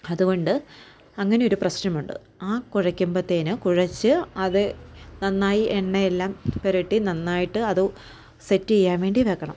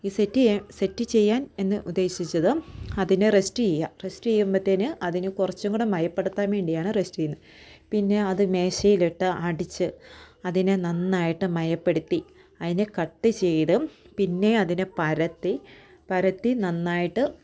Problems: none marked